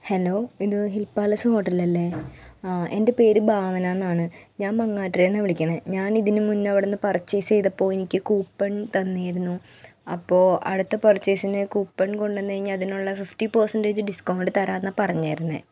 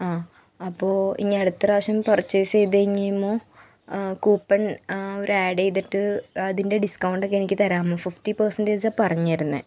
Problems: none marked